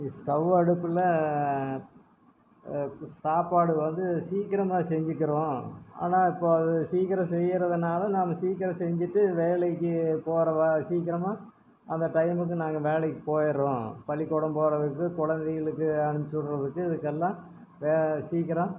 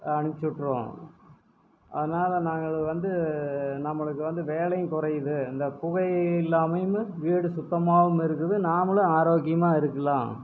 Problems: background sounds at intervals